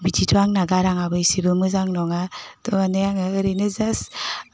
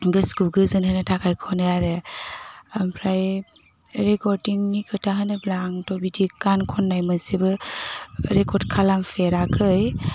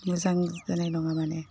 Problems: constant background noise